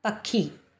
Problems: none marked